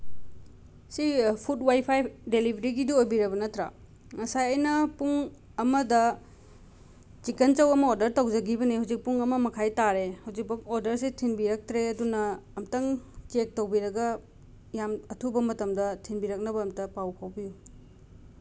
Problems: none marked